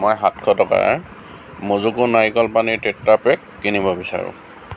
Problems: constant background noise